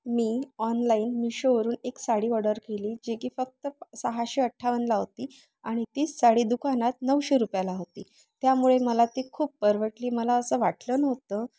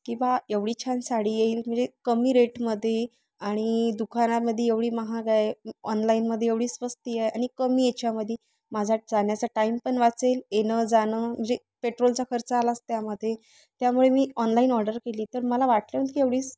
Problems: background sounds at intervals